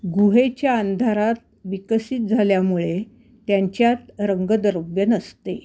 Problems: constant background noise